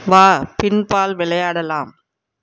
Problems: none marked